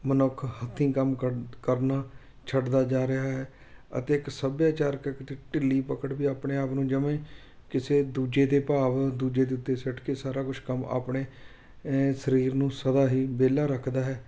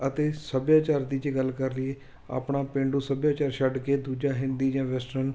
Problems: none marked